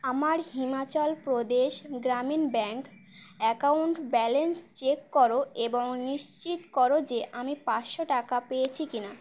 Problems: constant background noise